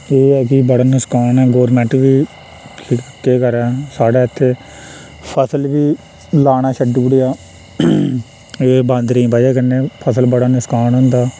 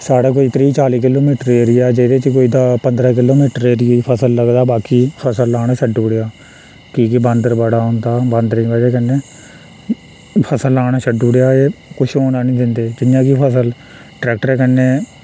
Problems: constant background noise, echo